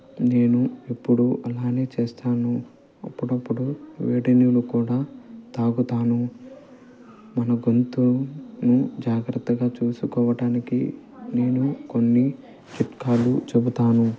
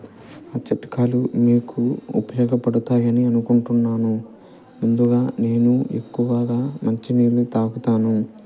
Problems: constant background noise, low volume